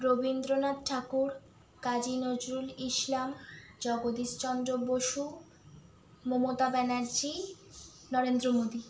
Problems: background sounds at intervals